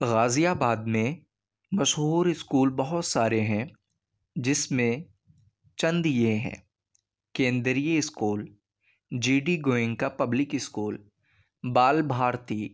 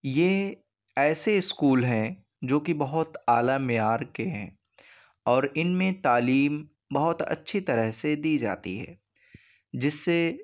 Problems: none marked